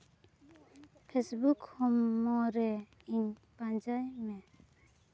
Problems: background sounds at intervals, low volume